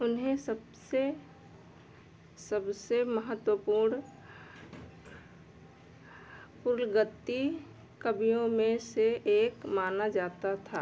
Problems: low volume